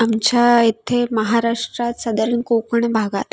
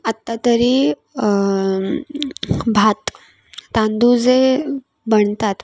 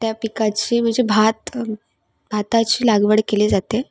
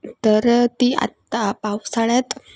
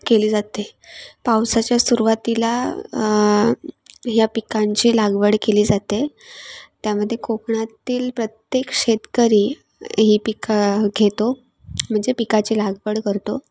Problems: constant background noise, background conversations at intervals